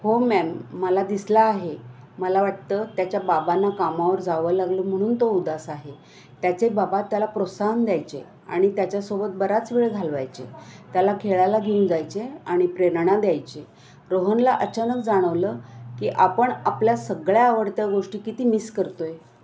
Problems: constant background noise, continuous background conversations